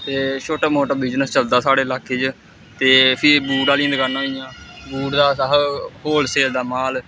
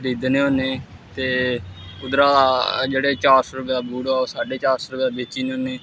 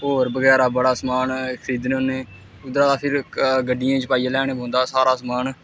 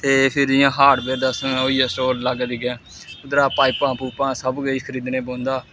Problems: constant background noise